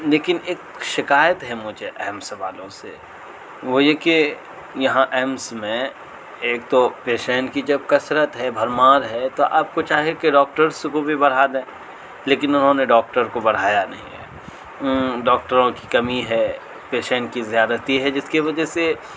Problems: constant background noise